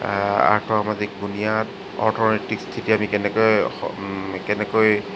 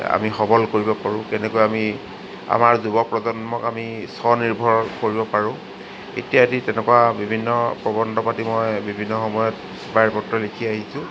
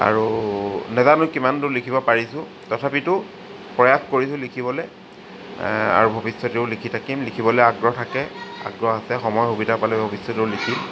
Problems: constant background noise